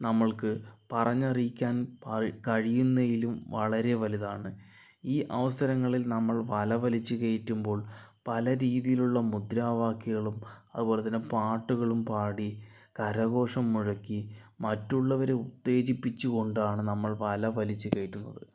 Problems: low volume